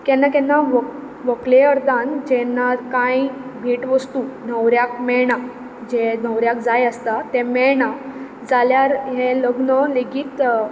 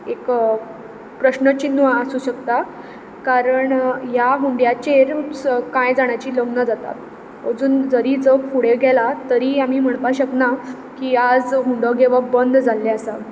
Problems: background sounds at intervals